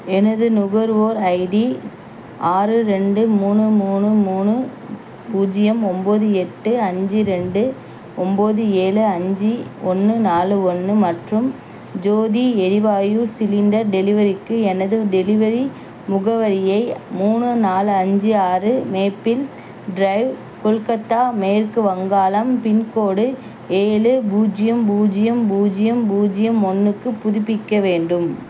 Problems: none marked